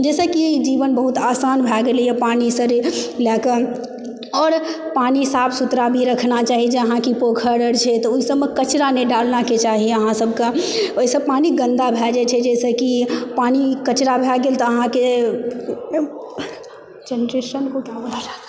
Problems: constant background noise, background conversations at intervals